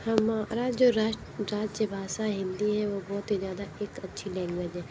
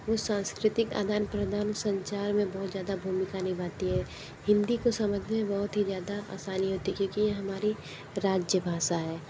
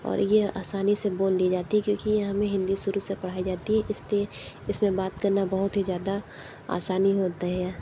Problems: low volume